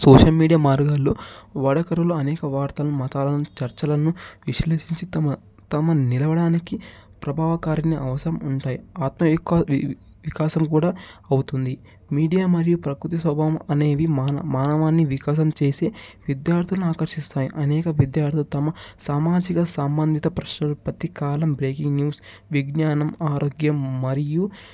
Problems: background sounds at intervals